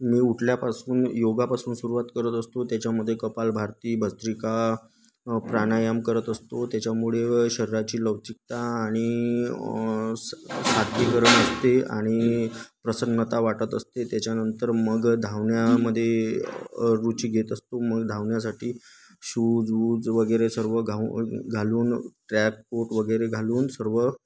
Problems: none marked